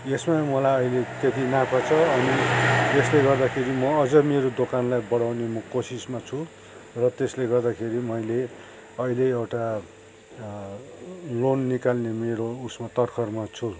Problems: none marked